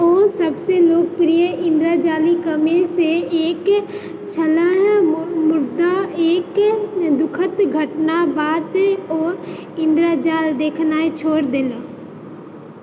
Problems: constant background noise